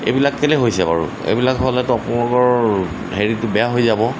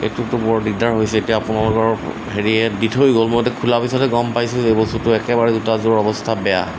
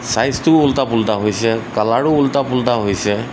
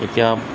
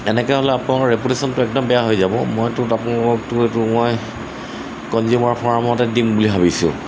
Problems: constant background noise